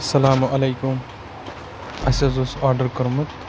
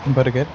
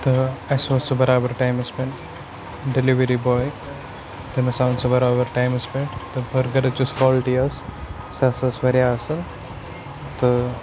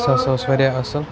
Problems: constant background noise, background conversations at intervals